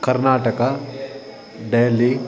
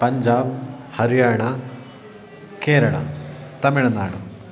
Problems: background sounds at intervals